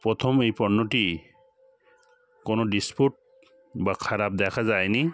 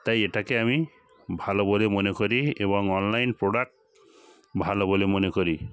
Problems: constant background noise